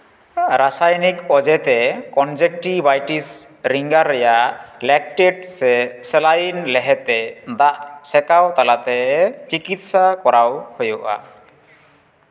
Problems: background sounds at intervals, echo